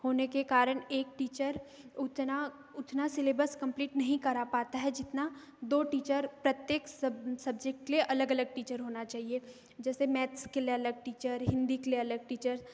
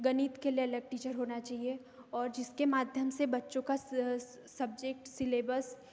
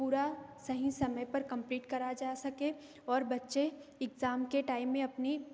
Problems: background sounds at intervals